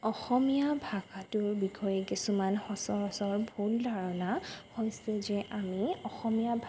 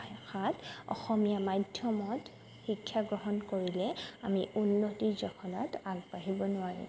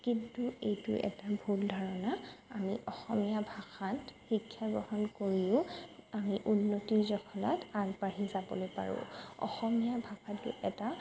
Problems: none marked